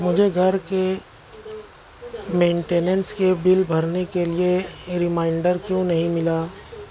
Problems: constant background noise